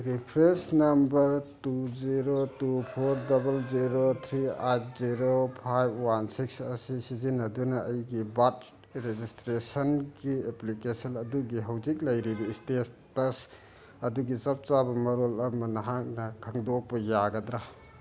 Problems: none marked